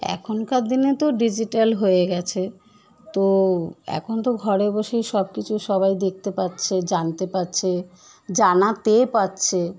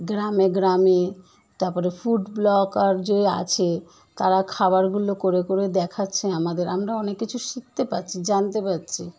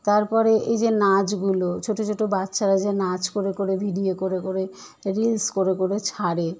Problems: constant background noise